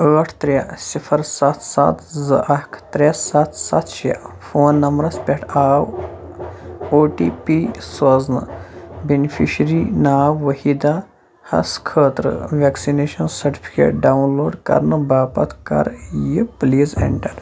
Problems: constant background noise